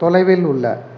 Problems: none marked